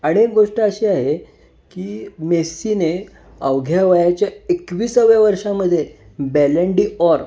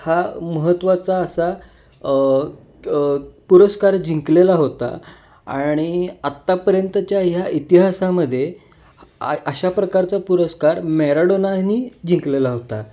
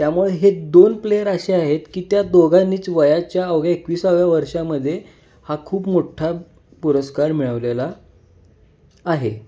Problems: constant background noise